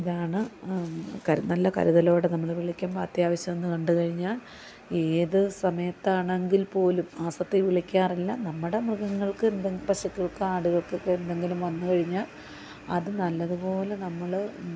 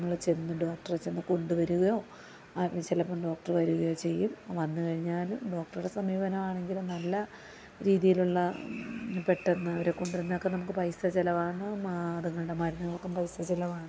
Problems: constant background noise, low volume